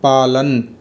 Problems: constant background noise